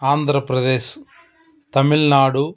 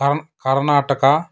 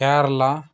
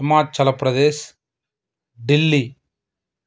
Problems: background conversations at intervals